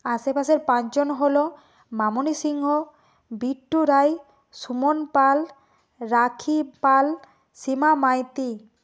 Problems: none marked